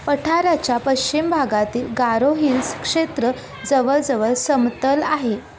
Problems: none marked